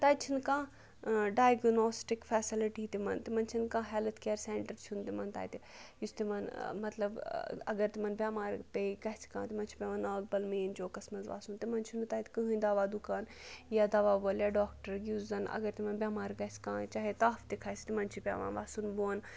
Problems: none marked